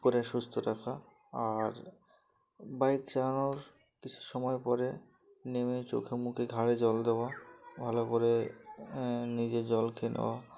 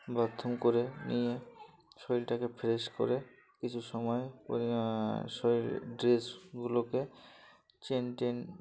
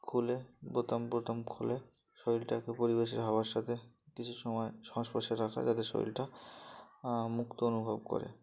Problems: constant background noise, background conversations at intervals